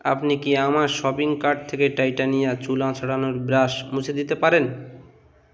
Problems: none marked